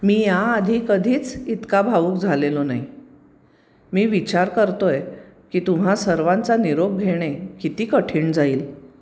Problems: none marked